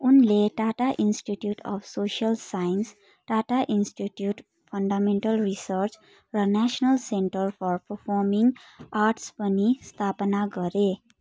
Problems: none marked